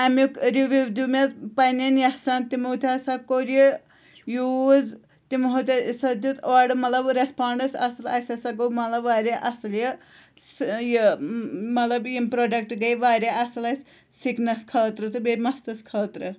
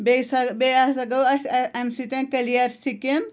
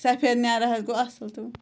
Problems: none marked